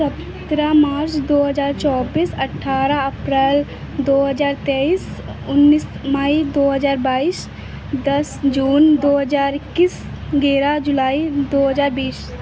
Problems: constant background noise